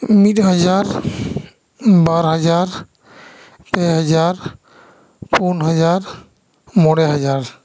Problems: echo